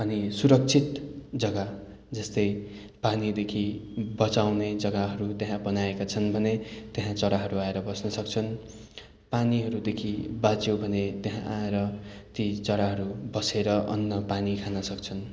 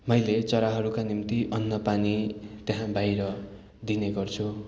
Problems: continuous background conversations